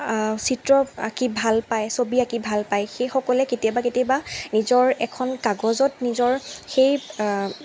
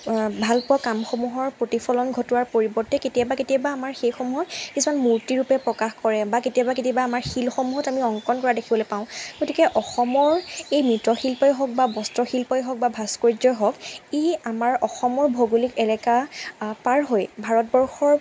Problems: constant background noise